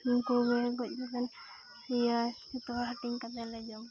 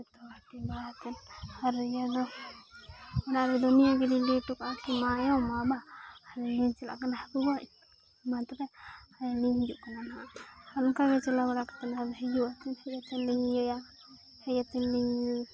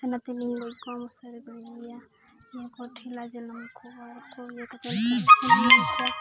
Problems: constant background noise, background conversations at intervals